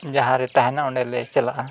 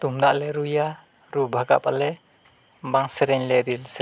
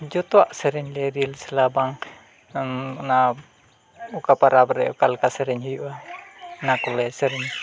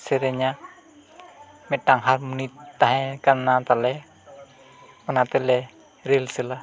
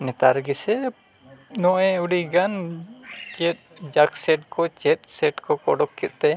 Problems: constant background noise, low volume